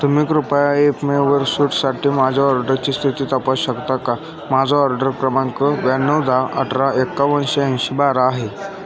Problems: constant background noise, continuous background conversations